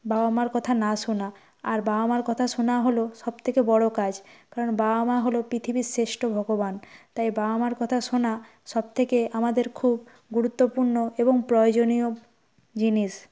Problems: none marked